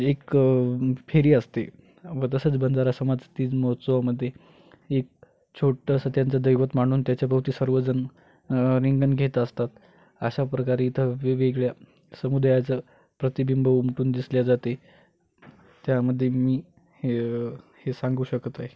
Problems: constant background noise